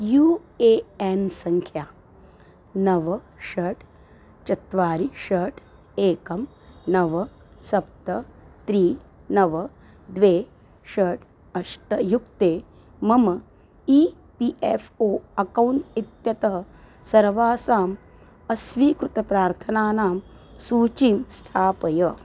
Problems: none marked